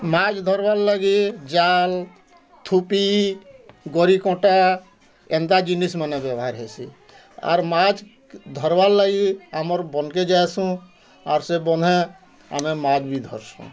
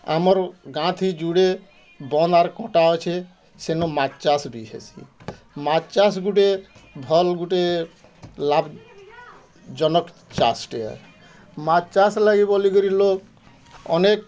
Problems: constant background noise, continuous background conversations